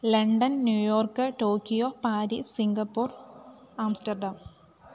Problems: none marked